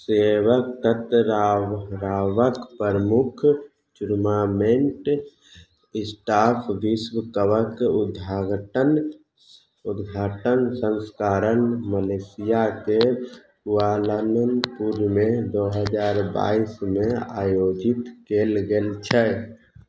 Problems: none marked